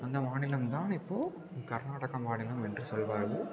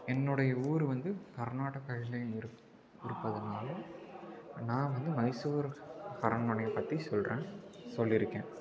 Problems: constant background noise